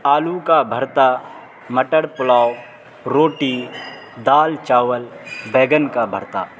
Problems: constant background noise